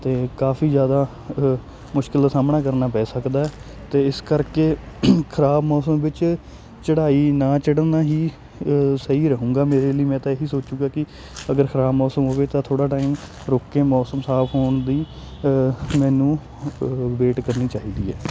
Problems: constant background noise